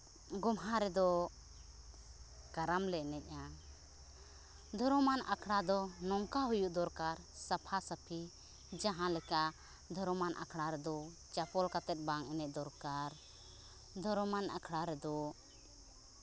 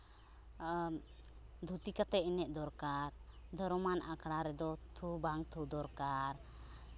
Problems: background sounds at intervals